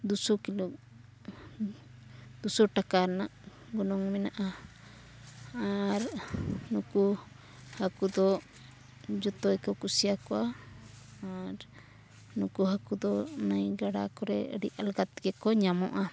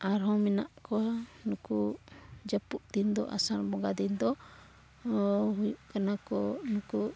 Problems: background sounds at intervals, low volume